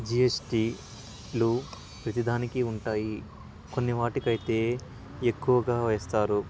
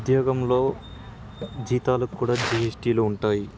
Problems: constant background noise